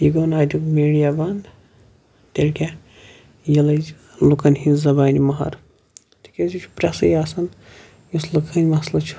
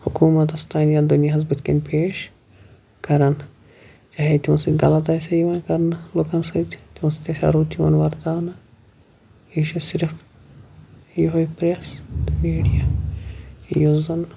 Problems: none marked